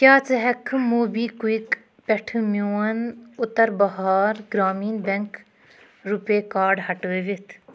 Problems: background sounds at intervals